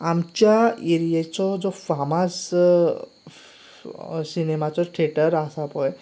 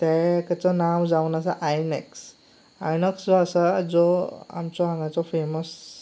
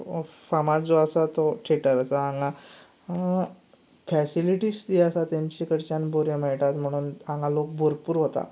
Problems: background sounds at intervals